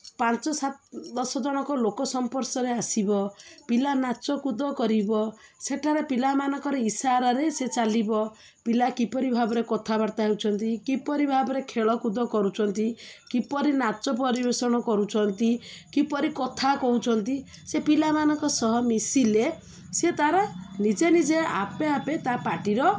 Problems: none marked